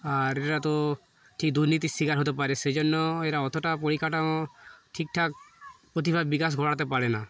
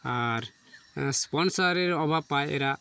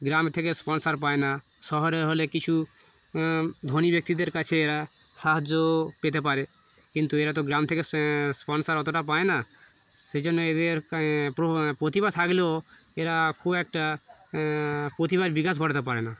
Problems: none marked